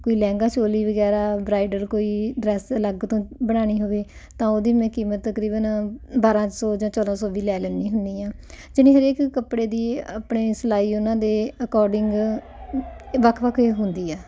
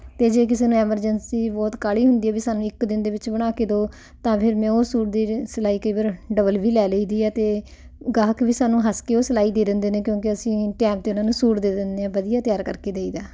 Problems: constant background noise